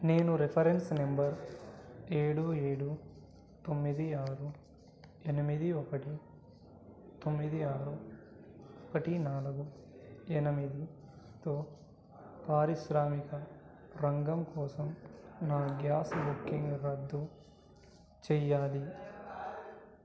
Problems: low volume